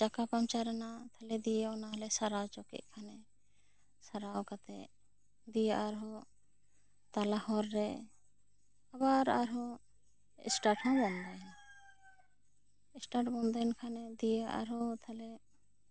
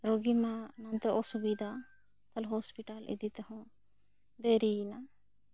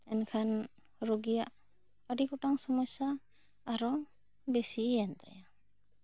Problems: none marked